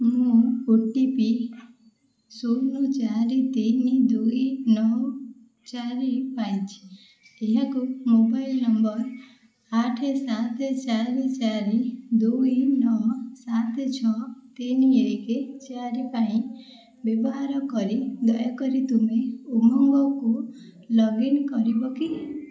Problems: echo